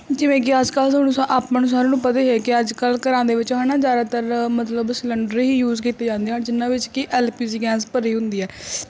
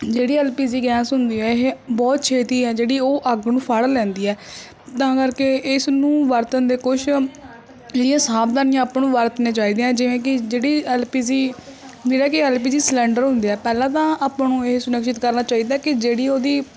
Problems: background sounds at intervals